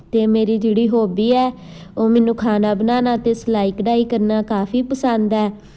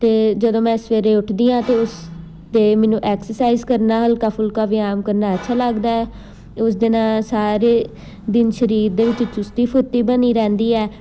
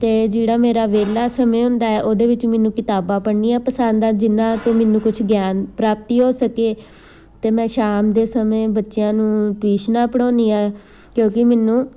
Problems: constant background noise